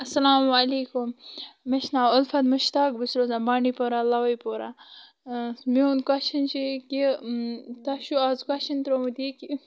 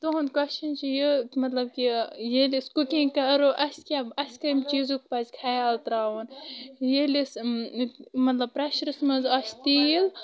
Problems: constant background noise